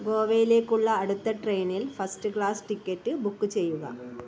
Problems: background sounds at intervals